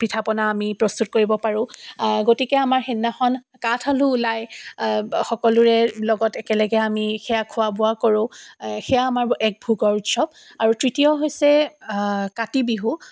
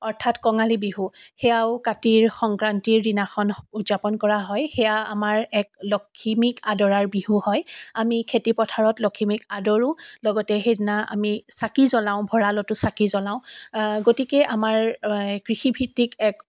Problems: none marked